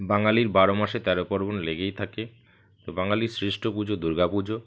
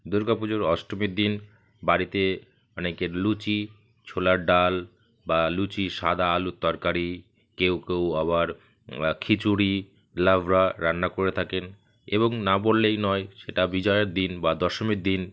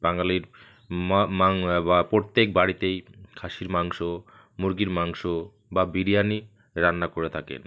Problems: constant background noise